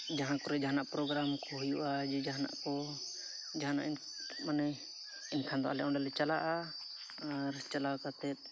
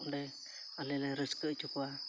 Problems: background sounds at intervals